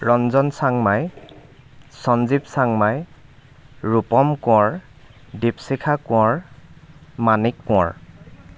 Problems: constant background noise, background conversations at intervals